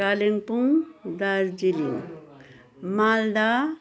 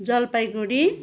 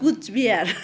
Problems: background sounds at intervals, background conversations at intervals